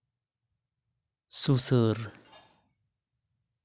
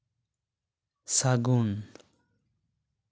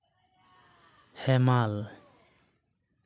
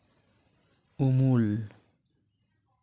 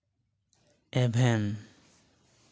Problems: none marked